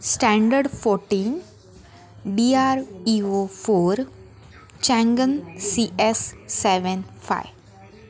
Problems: none marked